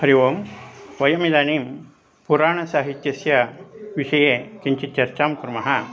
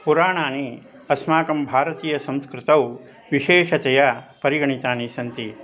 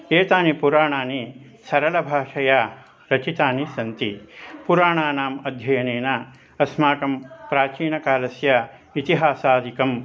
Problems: constant background noise